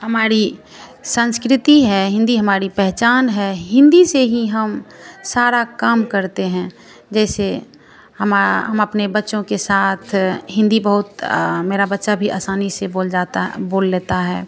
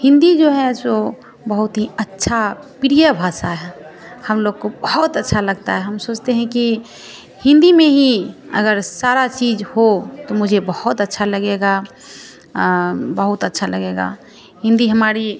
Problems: constant background noise